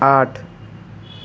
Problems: background sounds at intervals